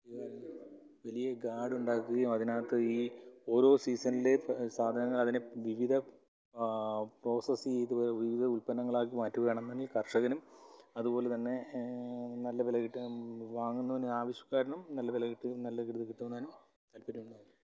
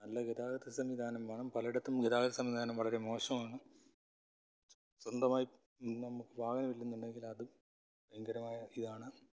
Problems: low volume